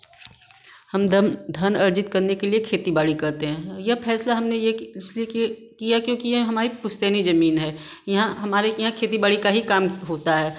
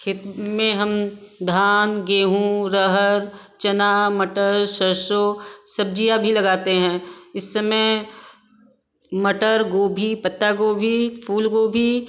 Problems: none marked